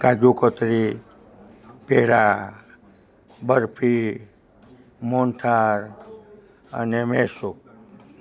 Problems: none marked